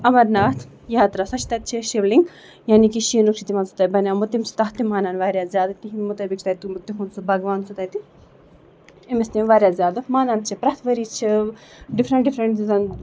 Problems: background sounds at intervals